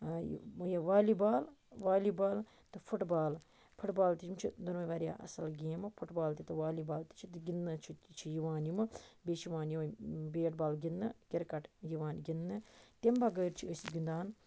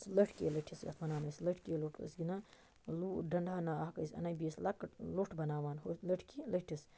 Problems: none marked